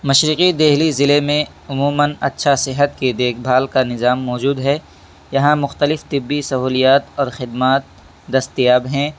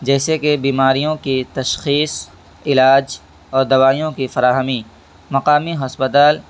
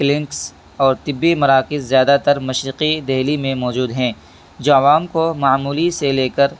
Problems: constant background noise